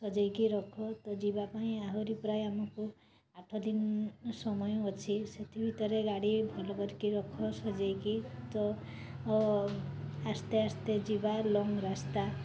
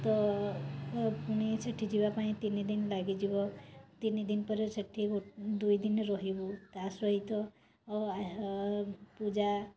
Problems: none marked